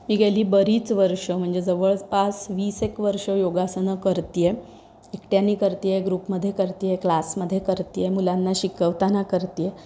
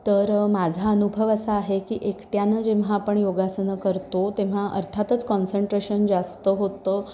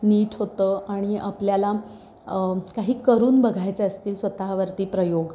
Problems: background sounds at intervals